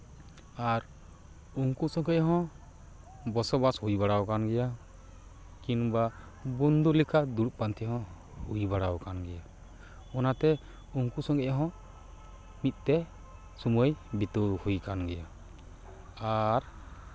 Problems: background sounds at intervals, background conversations at intervals